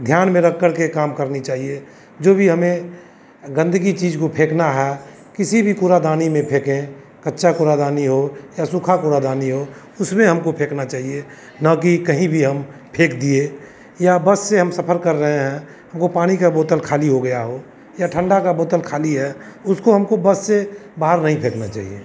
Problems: none marked